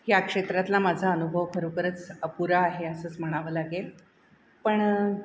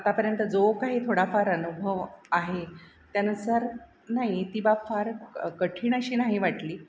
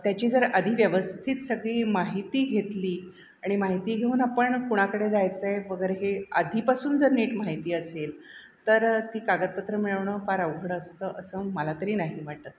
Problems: none marked